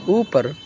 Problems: constant background noise